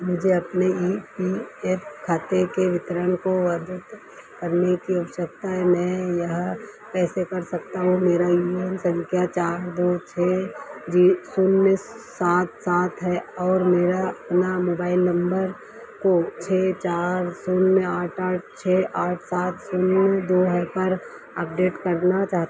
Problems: none marked